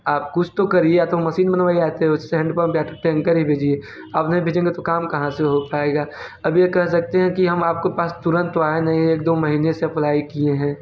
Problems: constant background noise, background conversations at intervals